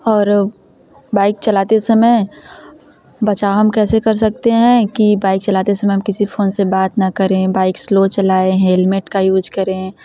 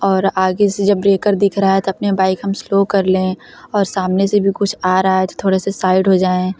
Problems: constant background noise, background conversations at intervals